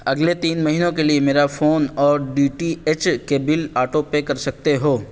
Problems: none marked